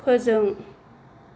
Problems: low volume